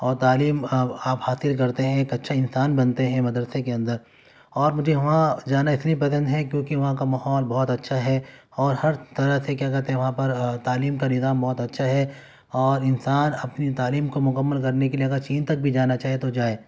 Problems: background sounds at intervals